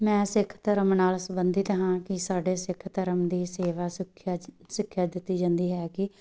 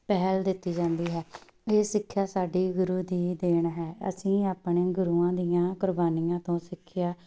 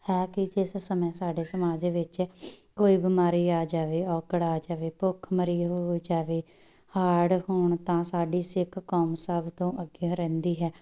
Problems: background sounds at intervals